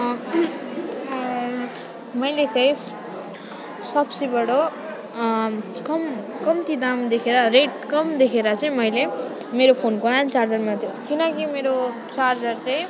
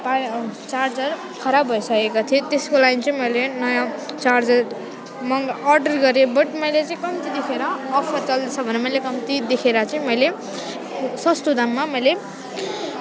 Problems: none marked